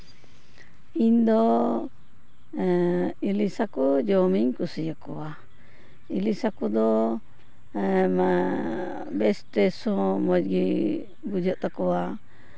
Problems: background sounds at intervals